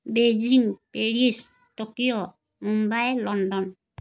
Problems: none marked